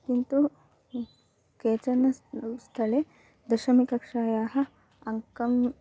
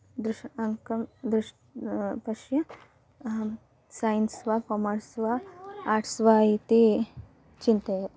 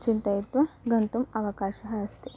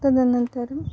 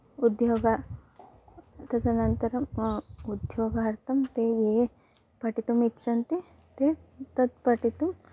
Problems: none marked